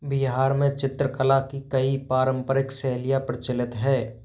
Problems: background sounds at intervals